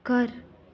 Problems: constant background noise